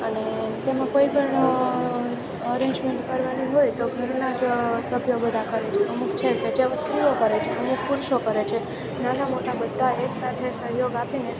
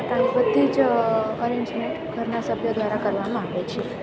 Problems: constant background noise